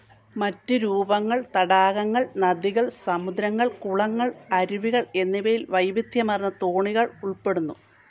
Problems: none marked